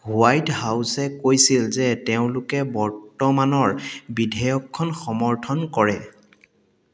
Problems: echo